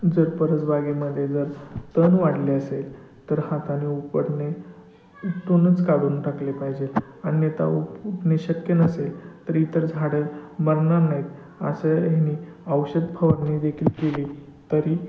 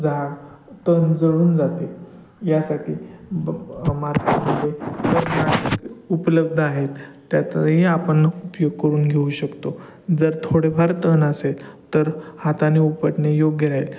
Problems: constant background noise, background conversations at intervals